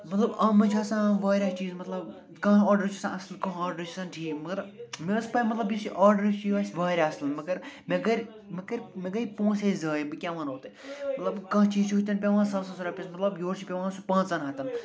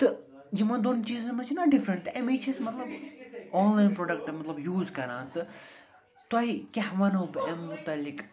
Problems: background sounds at intervals, continuous background conversations